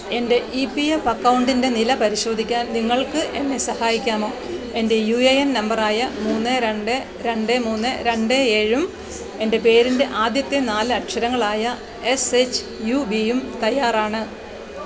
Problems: constant background noise